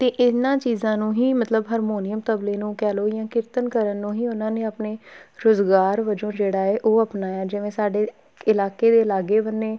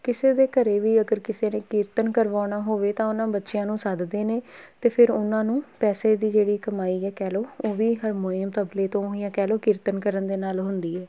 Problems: background sounds at intervals